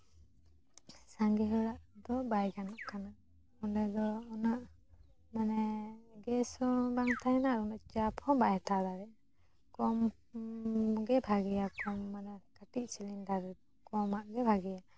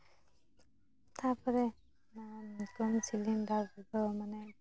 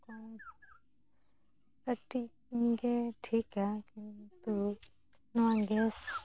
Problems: background sounds at intervals, low volume